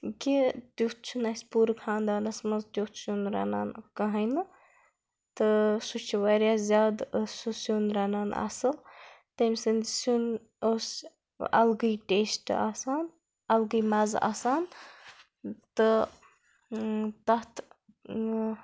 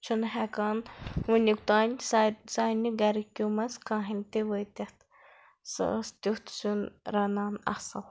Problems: none marked